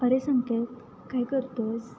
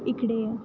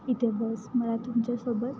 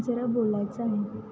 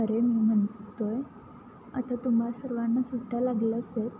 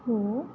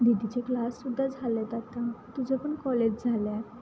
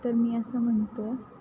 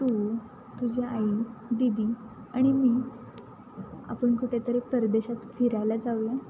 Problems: constant background noise, background conversations at intervals